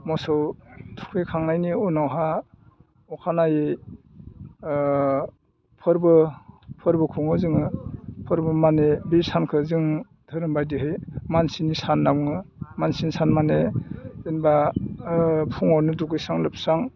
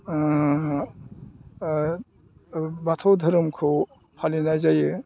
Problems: low volume